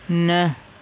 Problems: constant background noise